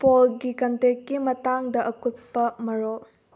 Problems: low volume